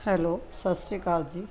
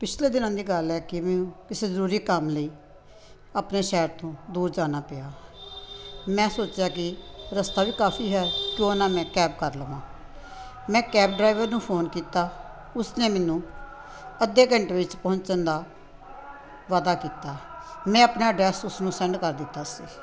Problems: constant background noise